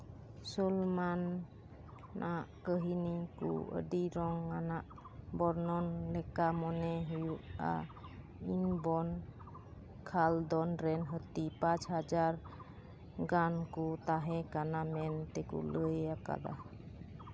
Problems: background sounds at intervals